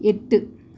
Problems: none marked